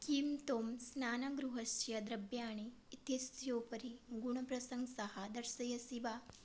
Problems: low volume